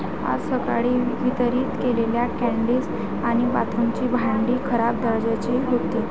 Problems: constant background noise, continuous background conversations